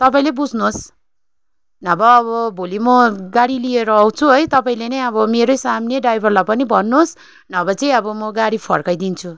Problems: constant background noise